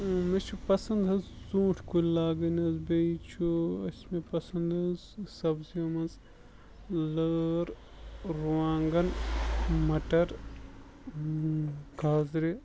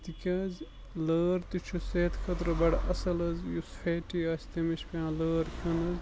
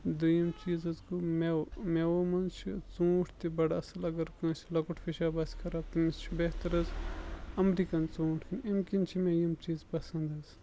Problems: constant background noise, low volume